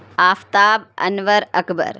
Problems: none marked